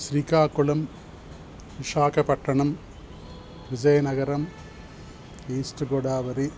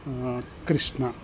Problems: constant background noise